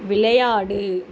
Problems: constant background noise